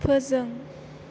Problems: none marked